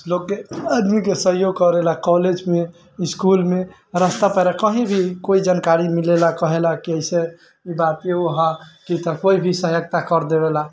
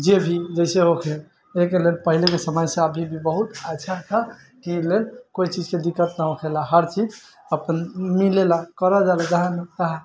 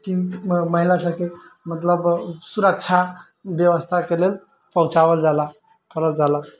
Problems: none marked